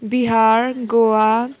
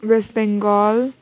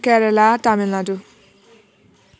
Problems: continuous background conversations